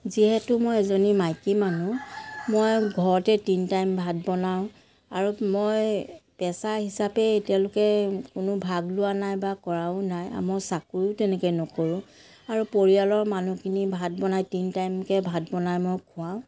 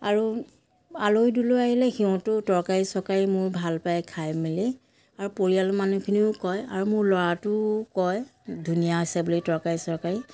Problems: background sounds at intervals, background conversations at intervals